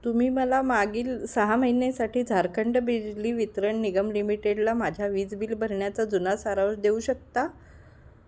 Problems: none marked